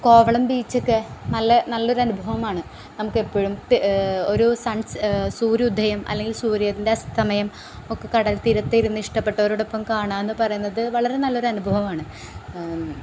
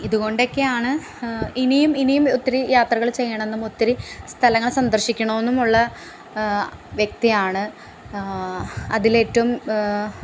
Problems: background sounds at intervals